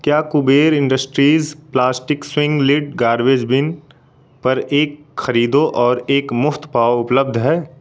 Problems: constant background noise